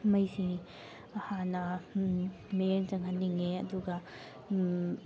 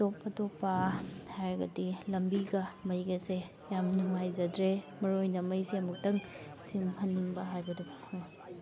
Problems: background sounds at intervals, background conversations at intervals